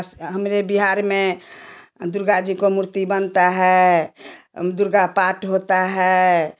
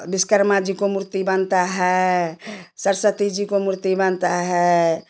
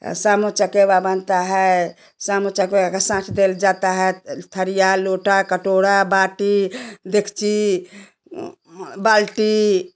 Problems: constant background noise, background conversations at intervals